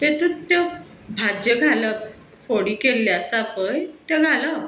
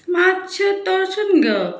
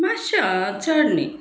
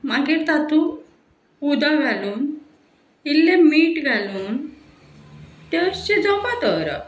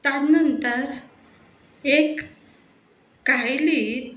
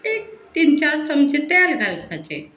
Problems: background sounds at intervals, background conversations at intervals